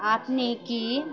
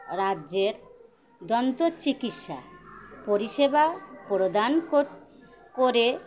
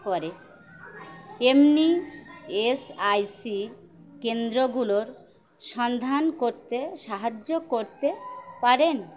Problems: constant background noise, continuous background conversations